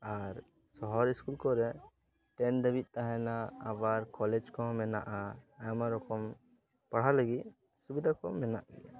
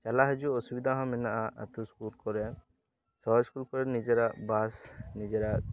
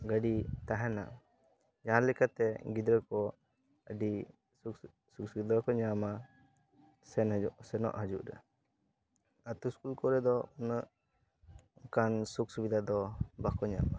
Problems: constant background noise, continuous background conversations